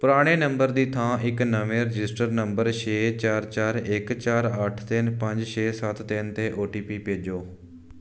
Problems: background sounds at intervals